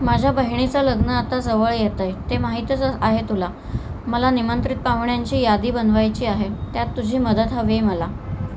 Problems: constant background noise